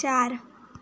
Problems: none marked